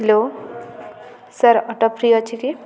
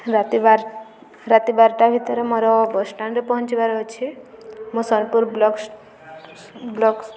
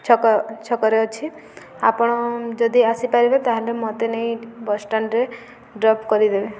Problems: none marked